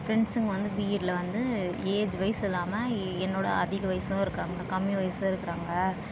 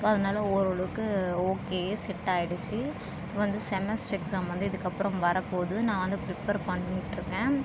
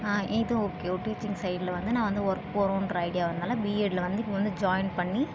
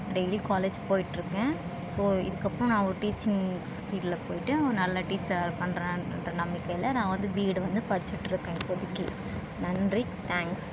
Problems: constant background noise